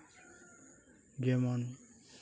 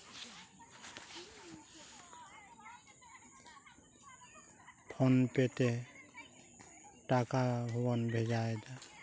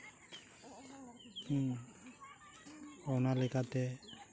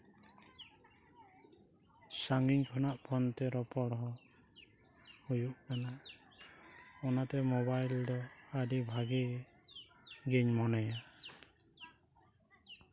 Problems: low volume